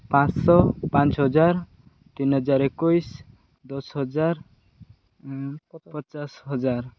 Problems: none marked